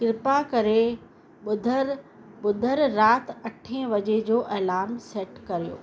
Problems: constant background noise, echo